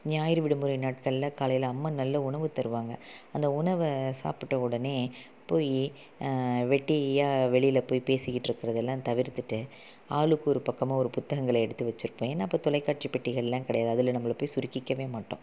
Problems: low volume